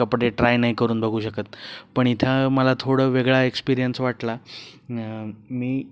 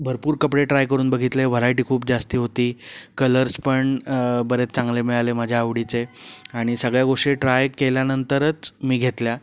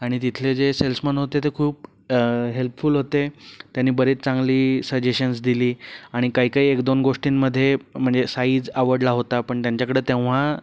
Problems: background sounds at intervals